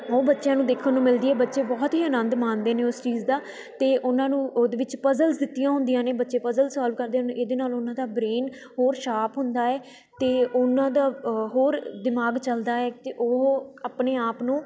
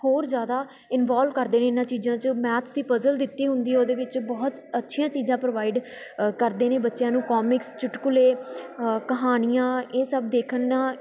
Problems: constant background noise, continuous background conversations